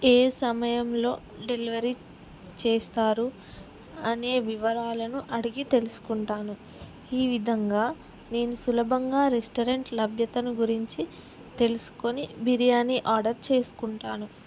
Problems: none marked